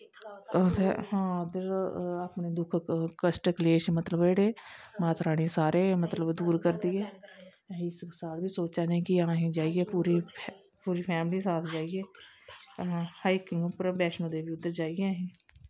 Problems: constant background noise